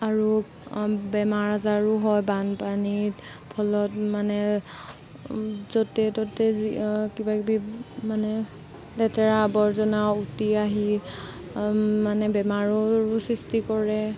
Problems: constant background noise